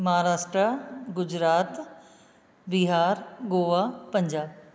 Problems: echo